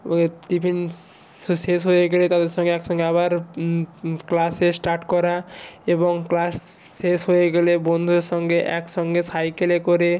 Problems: none marked